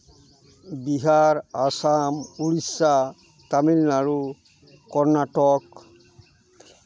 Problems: continuous background conversations